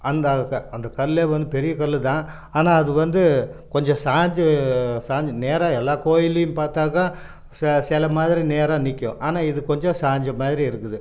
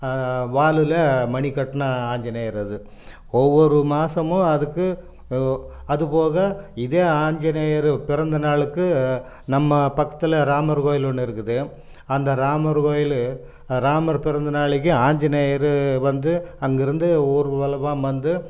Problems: none marked